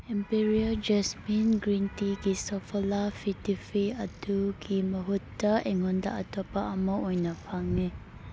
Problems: background sounds at intervals